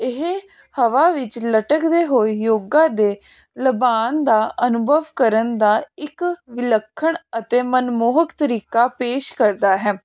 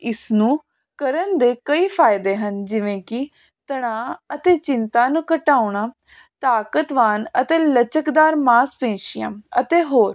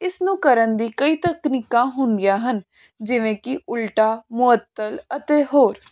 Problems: constant background noise